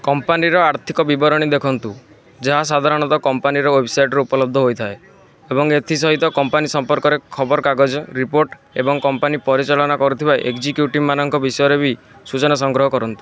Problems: constant background noise